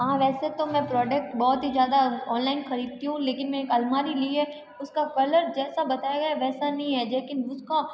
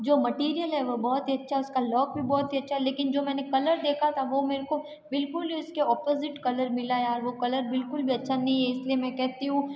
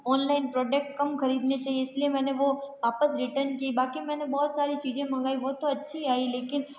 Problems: background sounds at intervals, background conversations at intervals